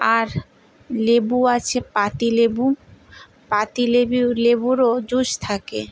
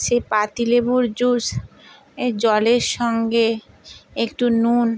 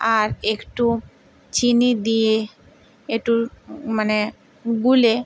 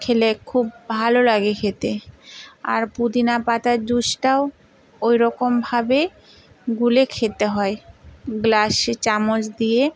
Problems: background sounds at intervals